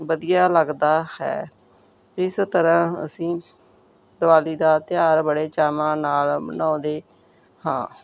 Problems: none marked